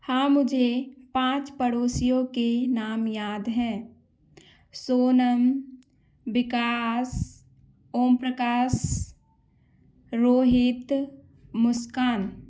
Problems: background sounds at intervals